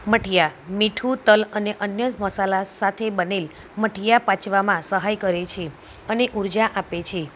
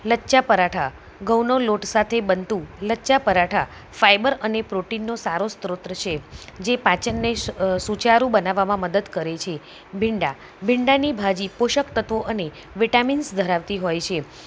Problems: none marked